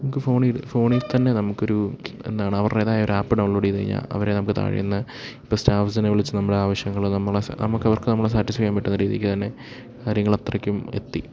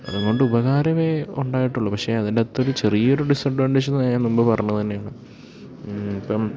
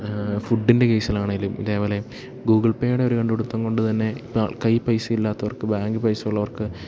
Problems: none marked